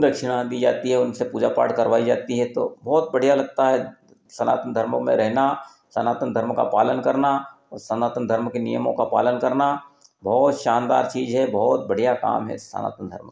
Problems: none marked